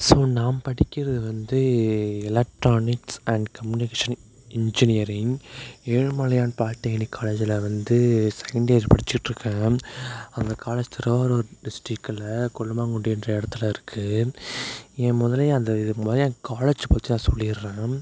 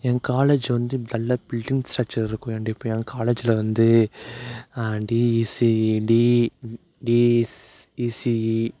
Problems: none marked